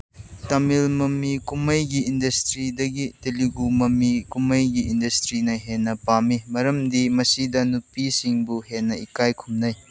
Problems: none marked